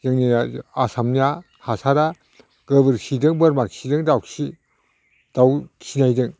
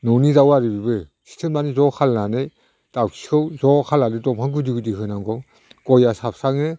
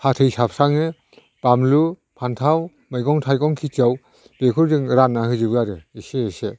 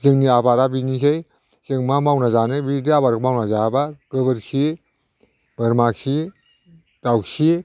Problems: none marked